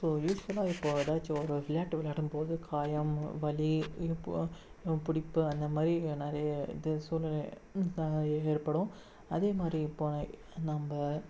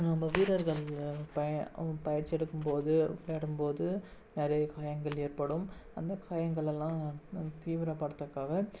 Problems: background sounds at intervals, low volume